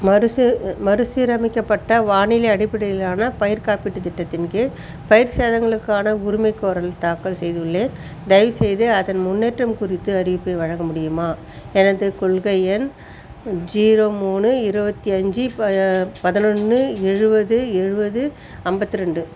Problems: constant background noise